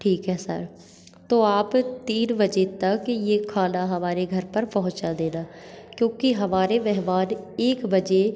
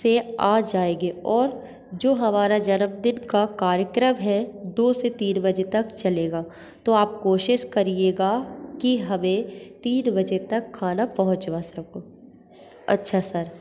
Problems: constant background noise, echo